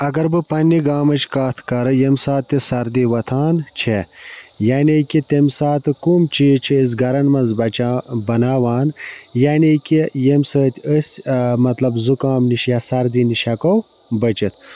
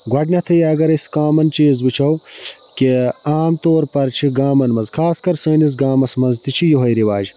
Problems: constant background noise